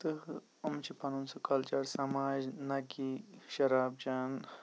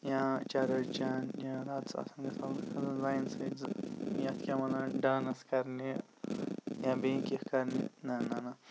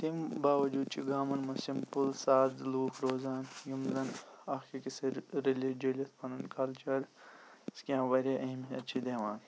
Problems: constant background noise